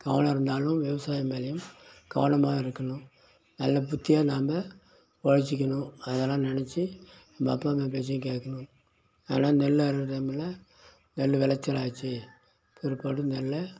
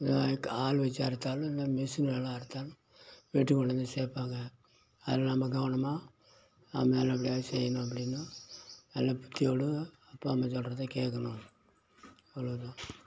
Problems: none marked